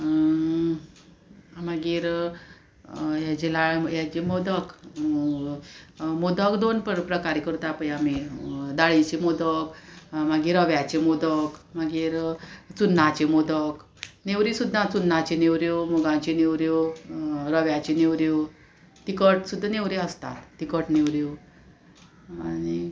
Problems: constant background noise